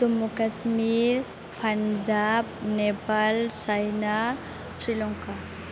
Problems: constant background noise